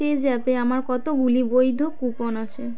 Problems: constant background noise